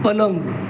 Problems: constant background noise